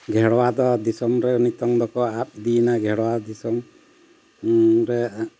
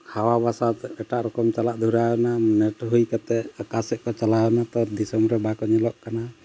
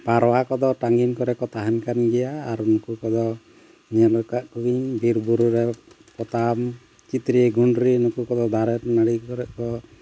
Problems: constant background noise